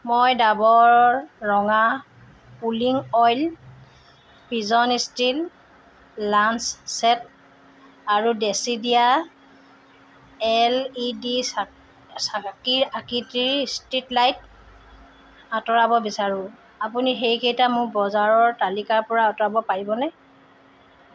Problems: background sounds at intervals